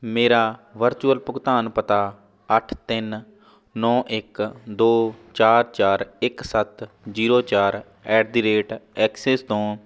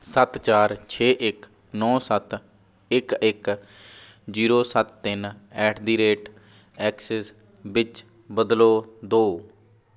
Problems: none marked